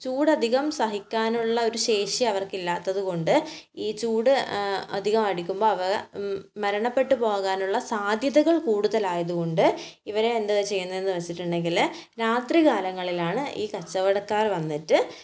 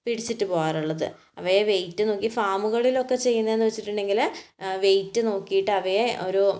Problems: none marked